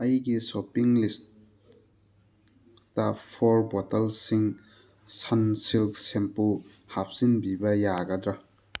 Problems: background sounds at intervals